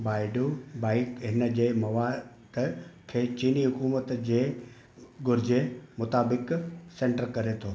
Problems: constant background noise, echo